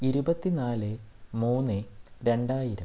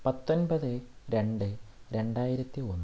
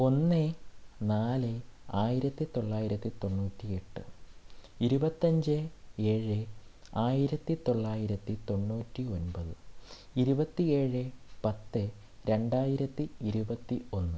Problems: low volume